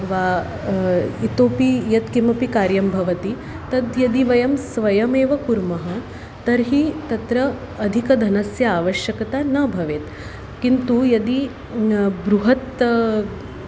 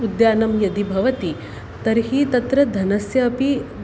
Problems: constant background noise